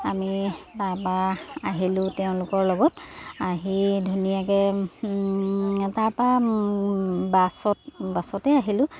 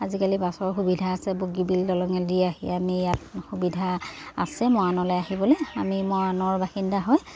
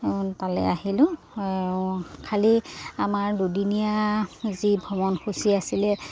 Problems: none marked